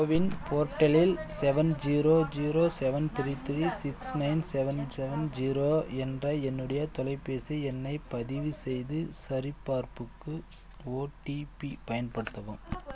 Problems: background conversations at intervals